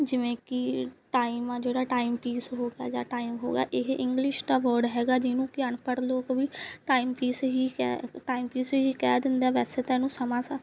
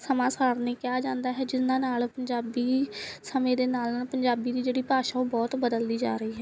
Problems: background sounds at intervals